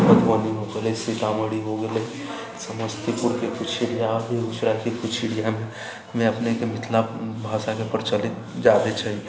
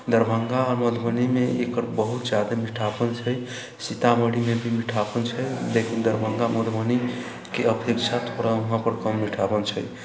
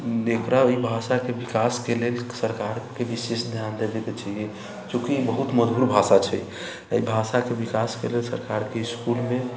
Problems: constant background noise